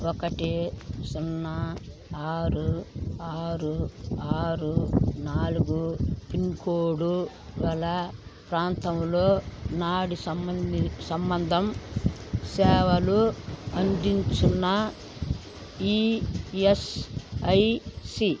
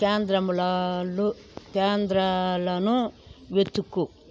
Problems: constant background noise